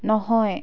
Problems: none marked